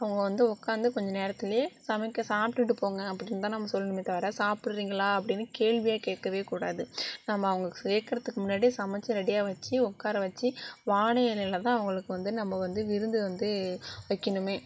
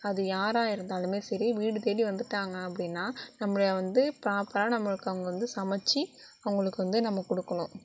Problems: none marked